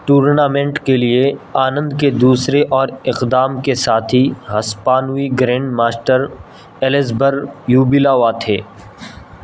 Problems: constant background noise